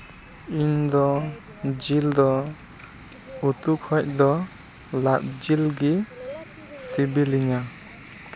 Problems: constant background noise